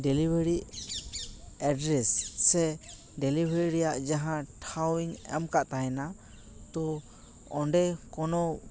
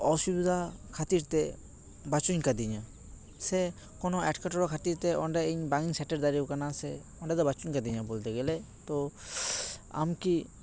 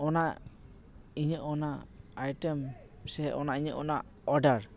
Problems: background sounds at intervals, continuous background conversations